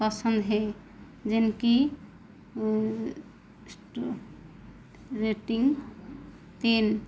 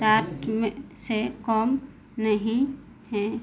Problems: constant background noise